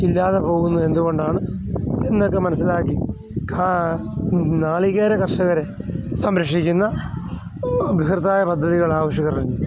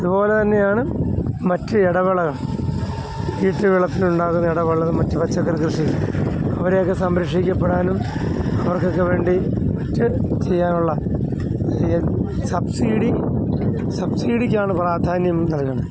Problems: none marked